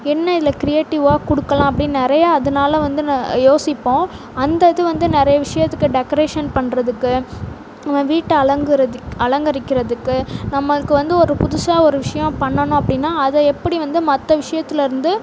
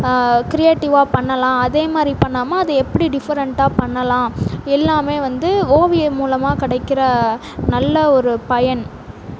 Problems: none marked